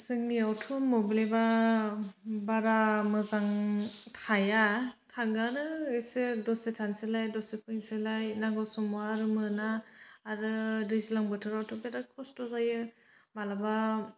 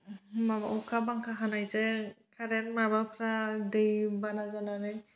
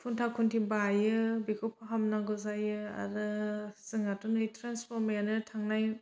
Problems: none marked